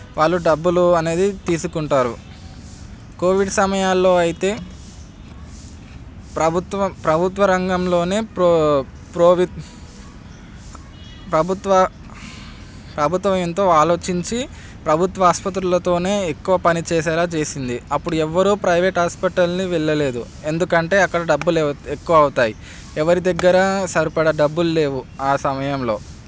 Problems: none marked